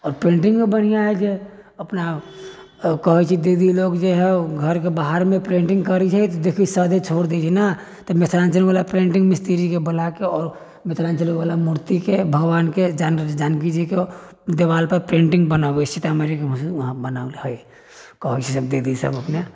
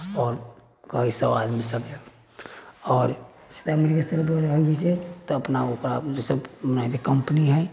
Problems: background sounds at intervals